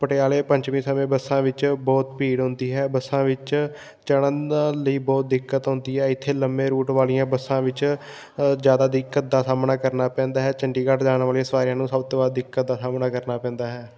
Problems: background sounds at intervals